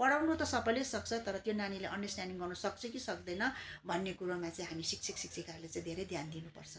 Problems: constant background noise